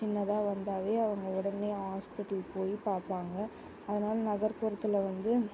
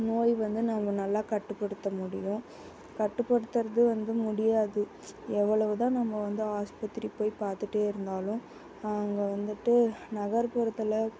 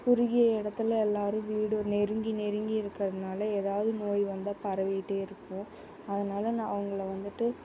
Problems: constant background noise